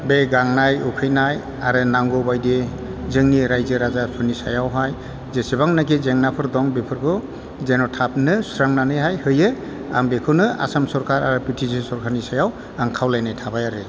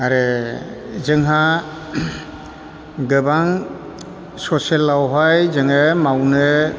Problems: constant background noise